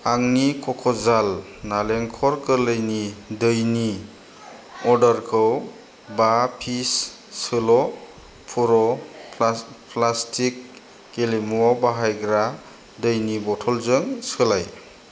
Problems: none marked